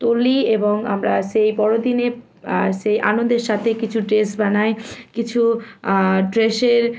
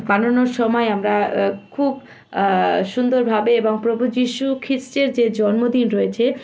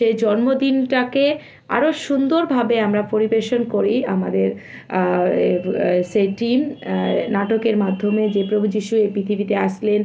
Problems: constant background noise